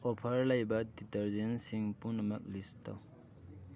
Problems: background conversations at intervals